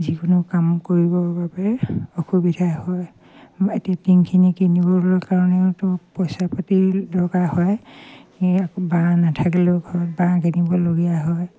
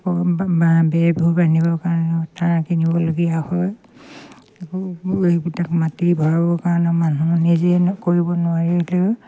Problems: none marked